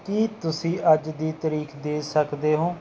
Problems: background sounds at intervals